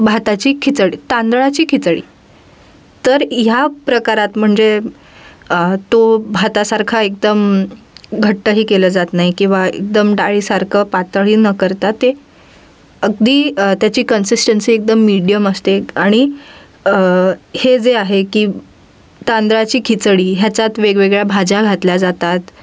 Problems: background sounds at intervals